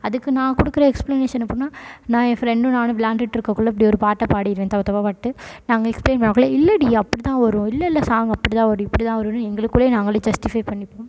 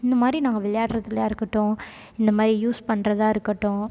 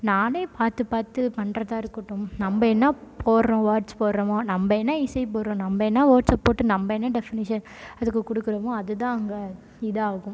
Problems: background sounds at intervals